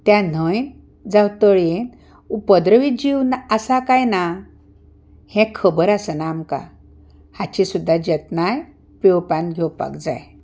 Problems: none marked